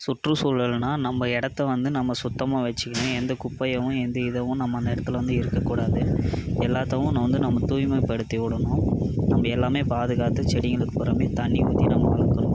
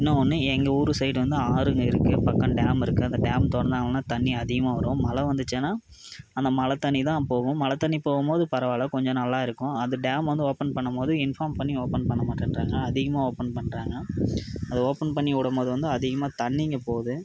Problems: background sounds at intervals